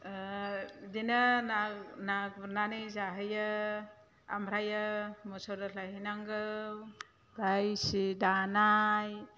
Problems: low volume